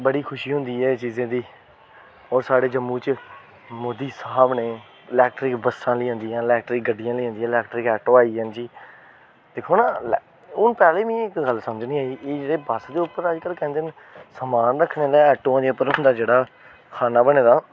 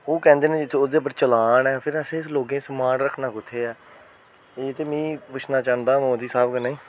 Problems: constant background noise